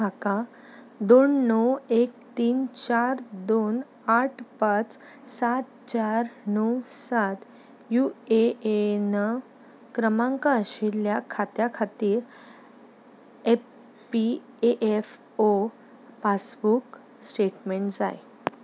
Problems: background sounds at intervals